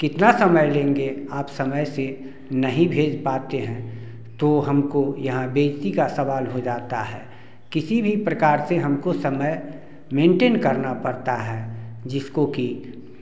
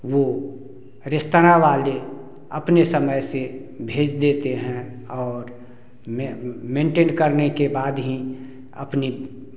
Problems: constant background noise